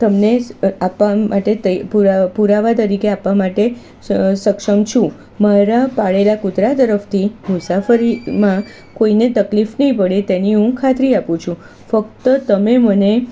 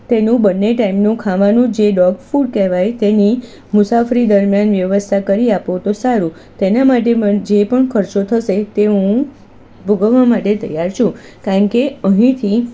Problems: constant background noise